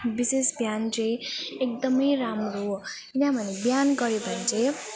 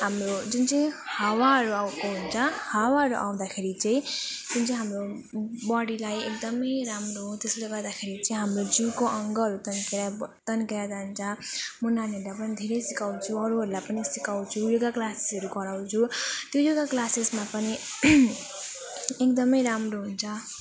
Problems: continuous background conversations